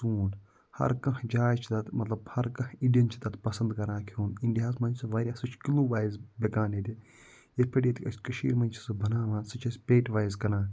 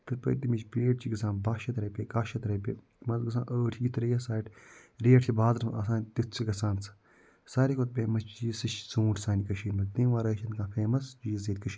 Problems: none marked